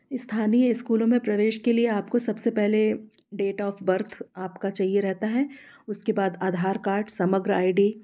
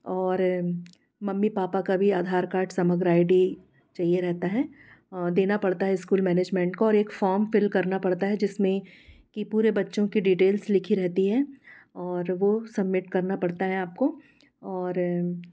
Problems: background sounds at intervals